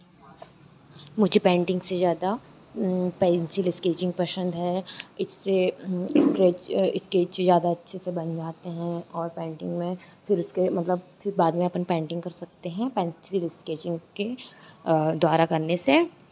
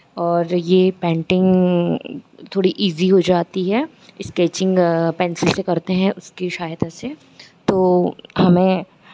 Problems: constant background noise